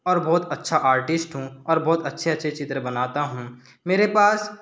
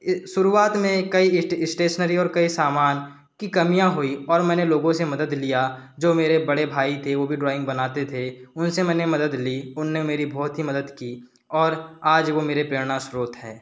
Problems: background sounds at intervals